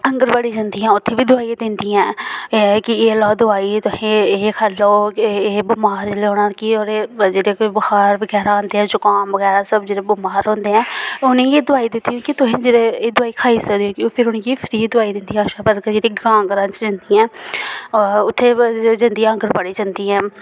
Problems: none marked